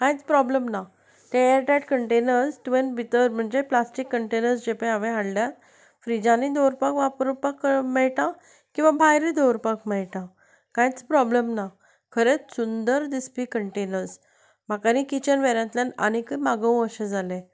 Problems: none marked